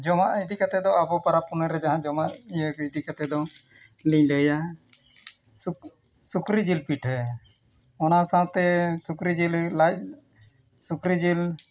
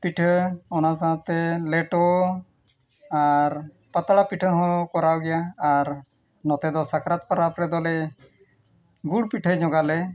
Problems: background sounds at intervals, background conversations at intervals